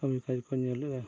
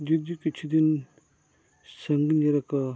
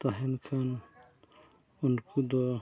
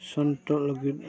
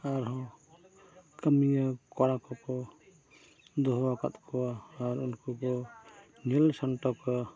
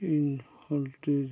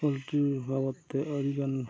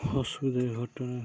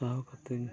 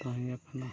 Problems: constant background noise, background conversations at intervals, low volume